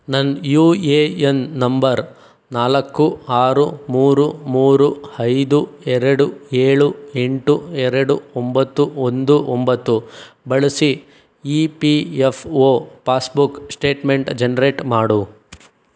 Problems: none marked